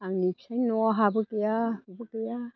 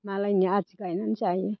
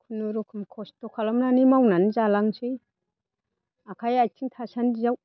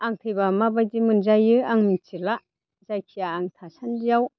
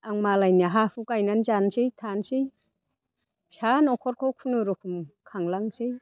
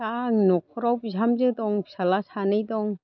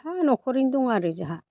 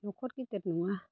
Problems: none marked